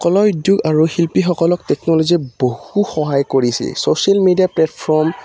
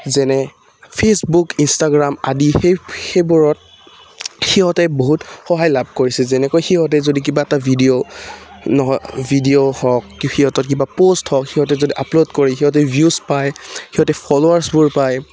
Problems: background sounds at intervals